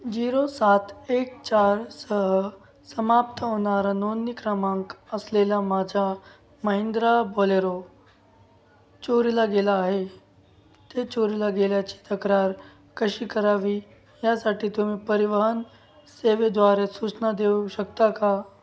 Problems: background sounds at intervals